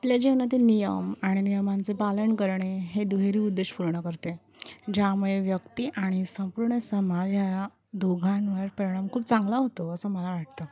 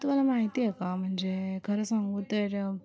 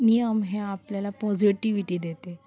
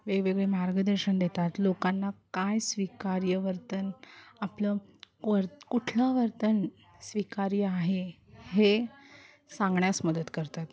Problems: constant background noise, continuous background conversations